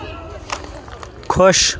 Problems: constant background noise